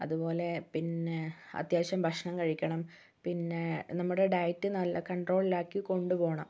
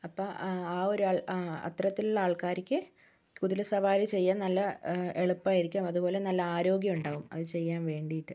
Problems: none marked